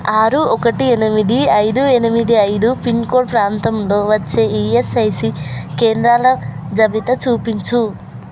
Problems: constant background noise, background conversations at intervals